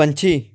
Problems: none marked